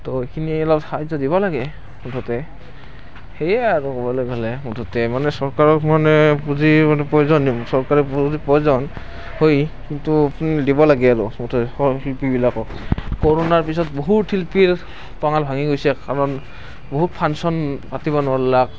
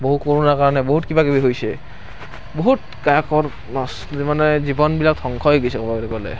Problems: none marked